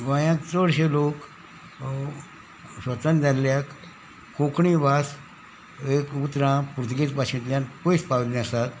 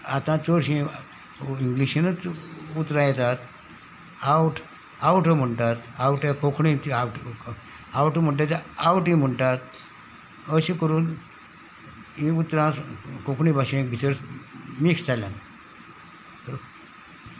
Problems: background sounds at intervals